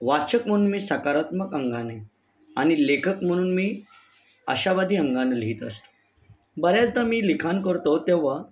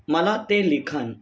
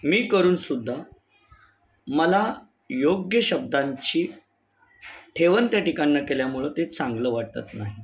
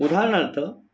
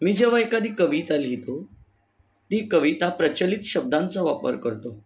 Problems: background sounds at intervals